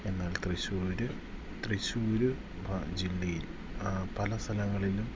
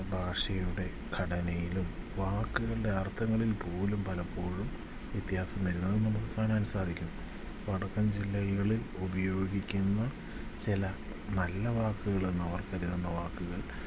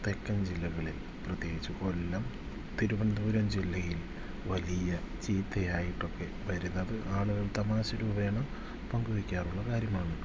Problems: none marked